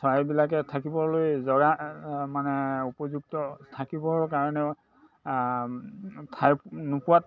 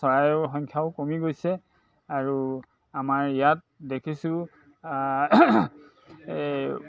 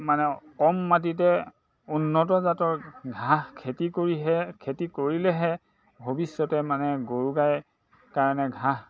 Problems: constant background noise, background conversations at intervals